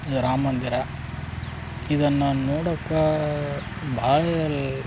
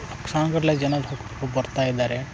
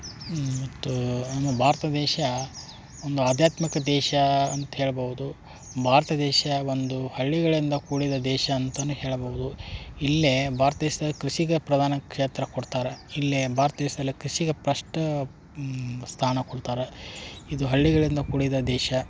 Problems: none marked